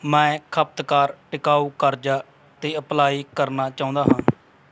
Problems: none marked